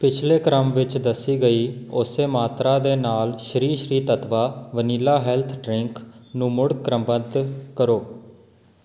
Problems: background sounds at intervals